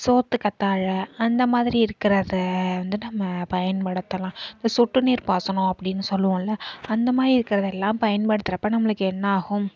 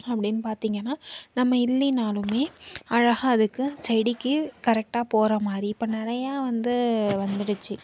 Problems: background sounds at intervals